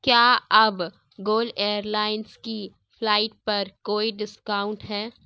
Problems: none marked